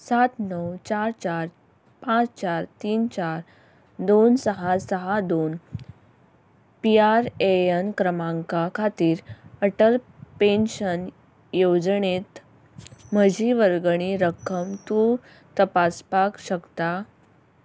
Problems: background sounds at intervals